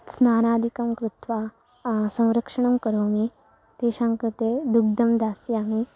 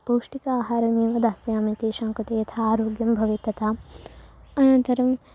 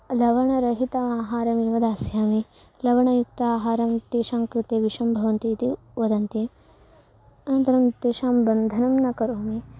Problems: none marked